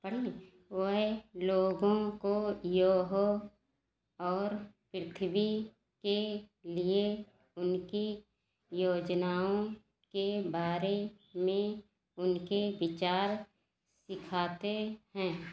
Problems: none marked